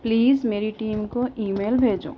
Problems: background sounds at intervals